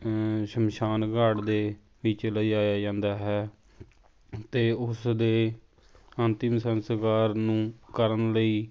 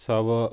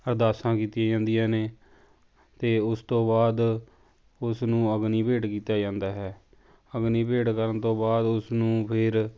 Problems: background sounds at intervals